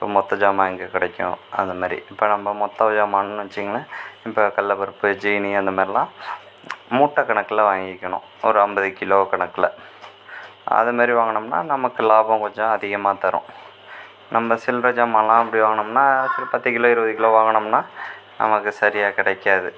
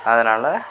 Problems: constant background noise